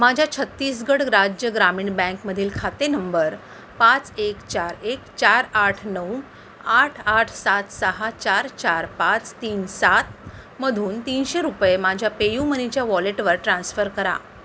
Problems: constant background noise